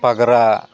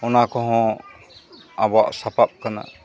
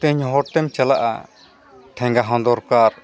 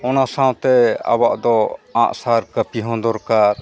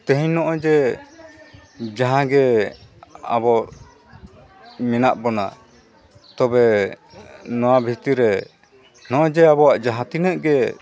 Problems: background sounds at intervals, continuous background conversations